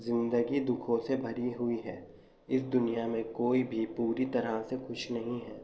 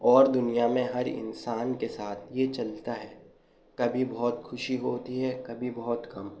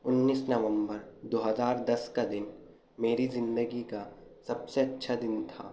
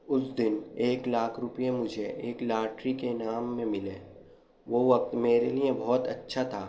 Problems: none marked